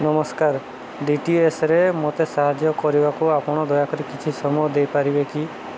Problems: constant background noise